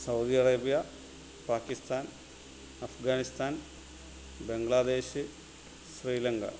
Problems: constant background noise